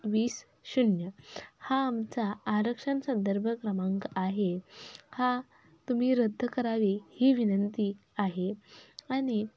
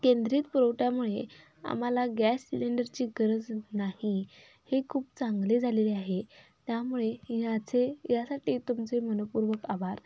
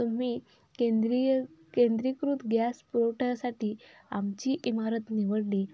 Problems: none marked